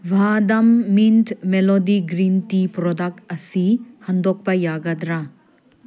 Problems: none marked